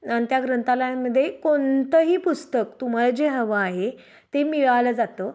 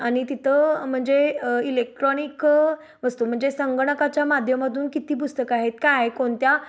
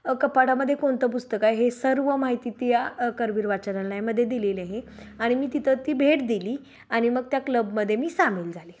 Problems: background sounds at intervals